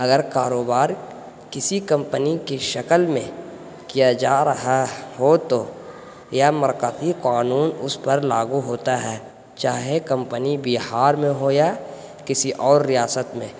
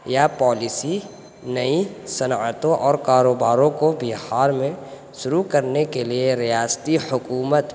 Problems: constant background noise